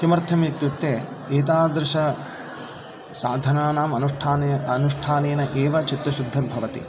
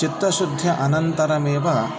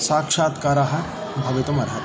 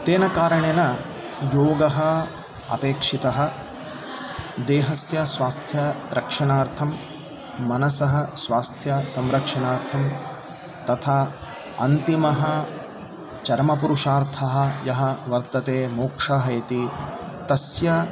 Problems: continuous background conversations